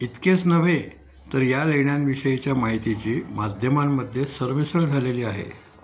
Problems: constant background noise, background conversations at intervals